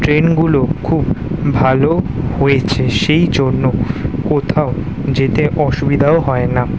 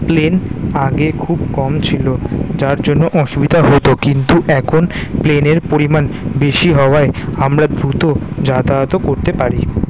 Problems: constant background noise